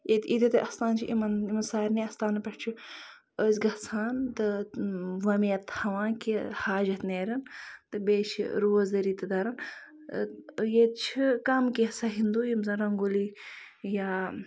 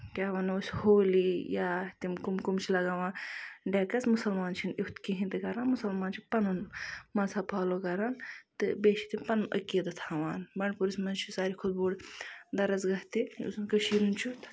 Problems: background sounds at intervals